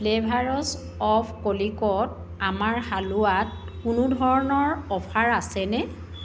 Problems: constant background noise